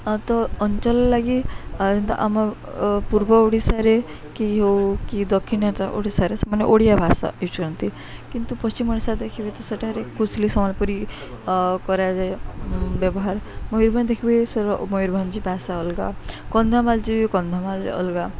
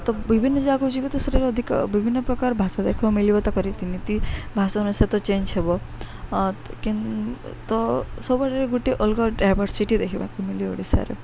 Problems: none marked